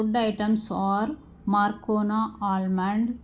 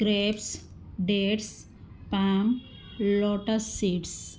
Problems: background sounds at intervals